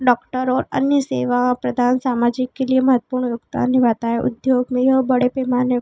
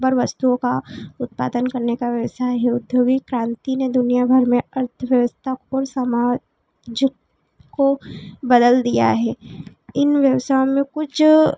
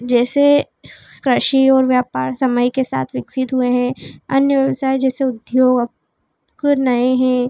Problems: constant background noise, background conversations at intervals